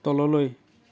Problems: continuous background conversations